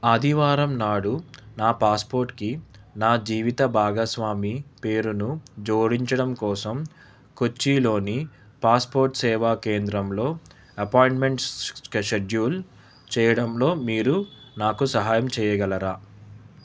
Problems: background sounds at intervals